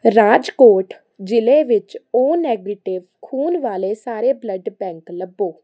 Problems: constant background noise